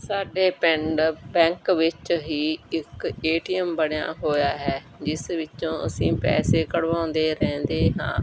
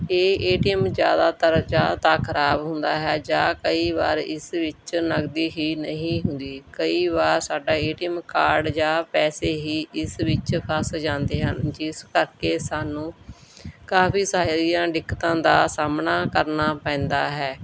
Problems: background sounds at intervals